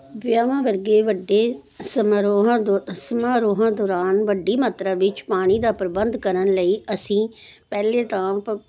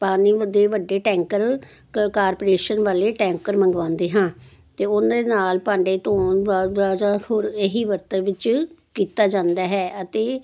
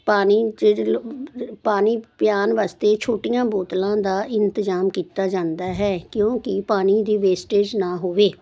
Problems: constant background noise